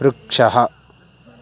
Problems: constant background noise